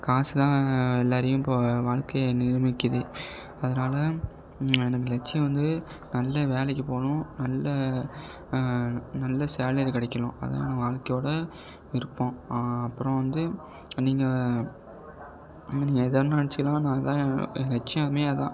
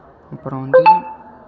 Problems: low volume